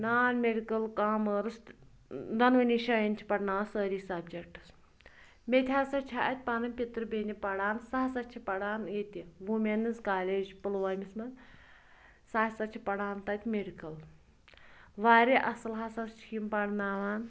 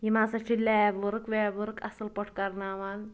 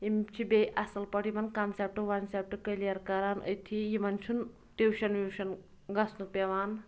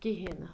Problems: background sounds at intervals